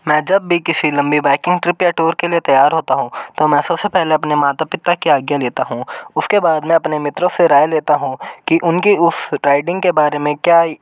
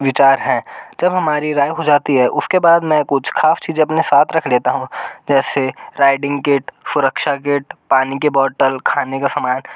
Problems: none marked